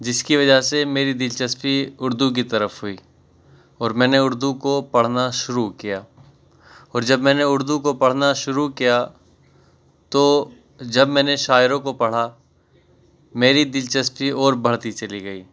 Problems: none marked